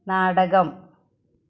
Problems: none marked